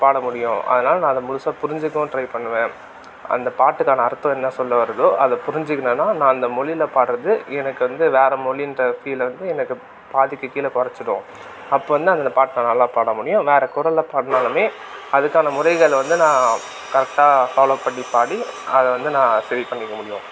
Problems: constant background noise